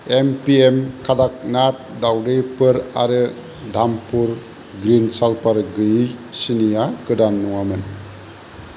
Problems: constant background noise